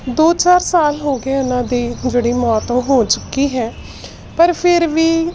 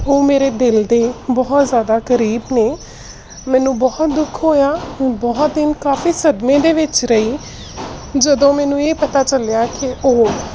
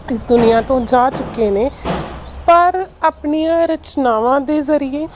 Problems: constant background noise